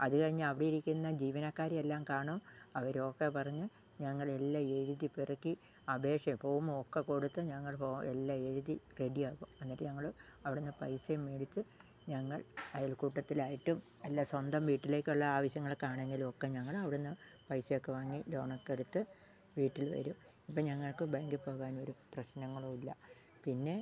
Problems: low volume